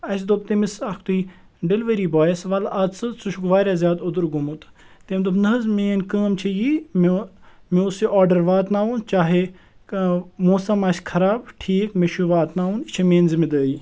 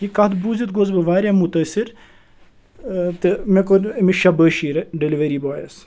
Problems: none marked